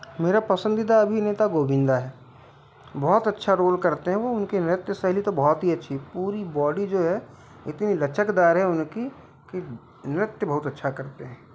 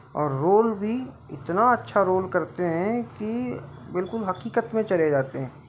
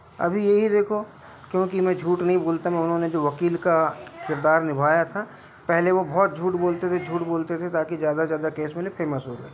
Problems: background sounds at intervals